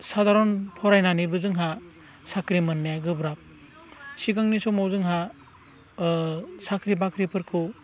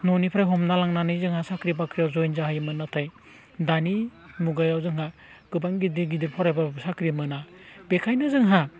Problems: low volume